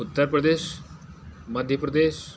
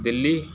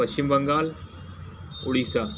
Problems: constant background noise